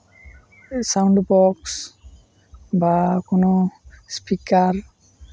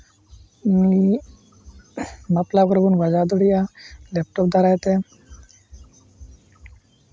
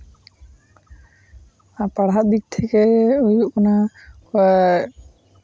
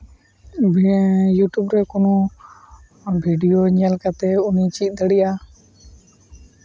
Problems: none marked